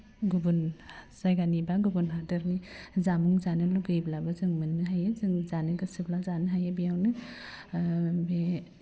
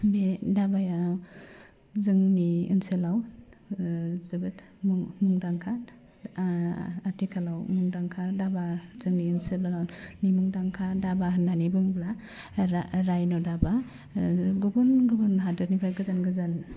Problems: low volume